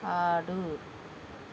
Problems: constant background noise